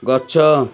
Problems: continuous background conversations